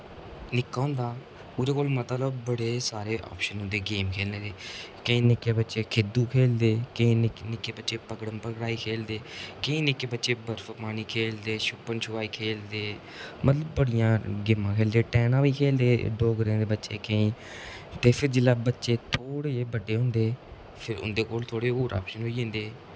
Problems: constant background noise